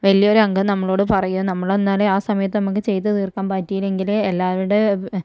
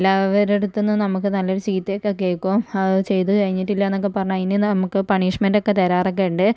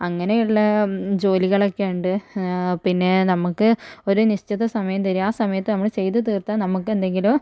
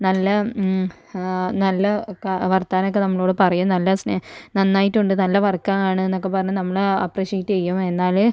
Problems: low volume